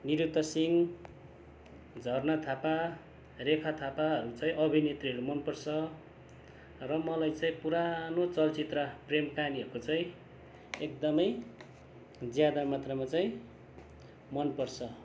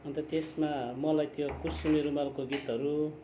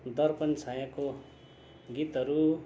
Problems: constant background noise